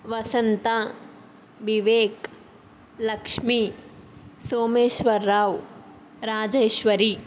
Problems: none marked